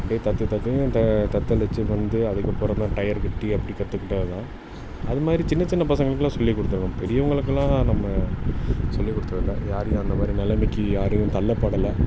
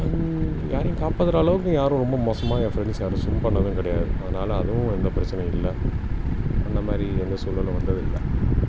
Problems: constant background noise